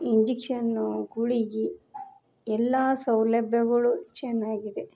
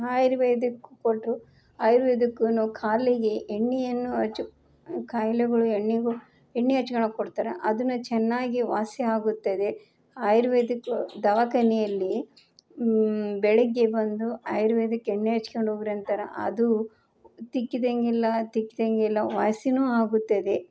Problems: background sounds at intervals